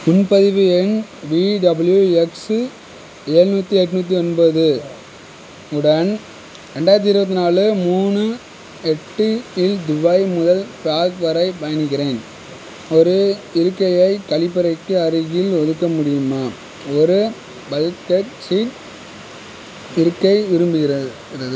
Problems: constant background noise